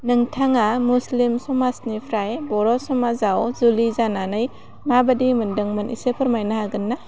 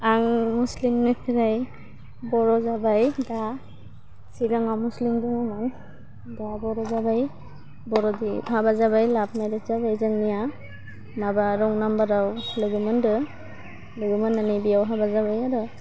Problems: none marked